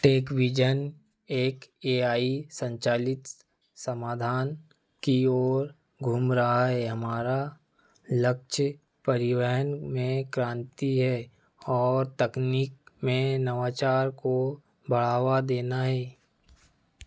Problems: none marked